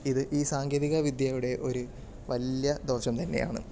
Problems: none marked